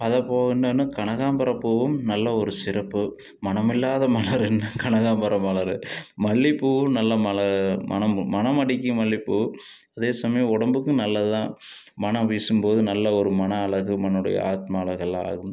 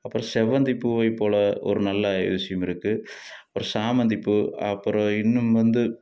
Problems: none marked